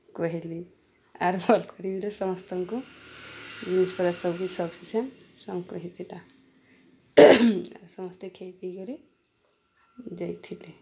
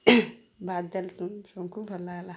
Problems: none marked